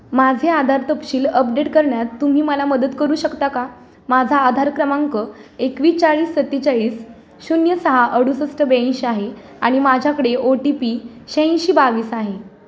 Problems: constant background noise